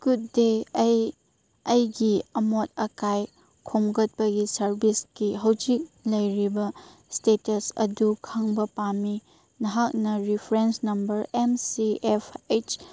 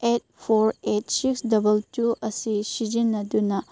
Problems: none marked